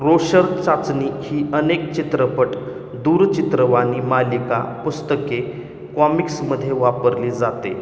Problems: constant background noise